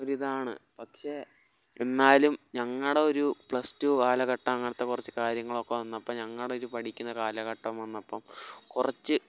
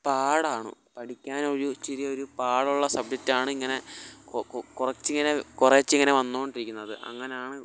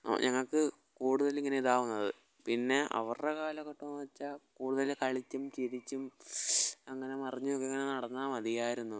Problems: low volume